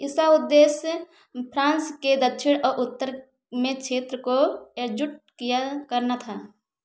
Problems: background sounds at intervals